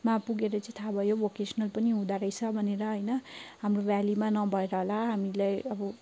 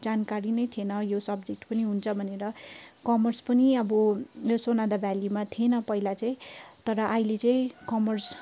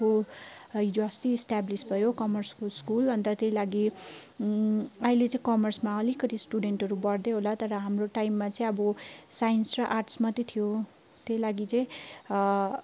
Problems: background sounds at intervals